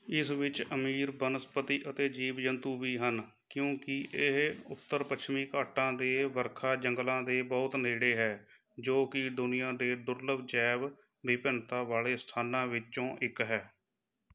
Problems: background sounds at intervals